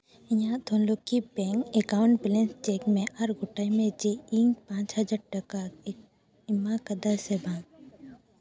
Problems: background conversations at intervals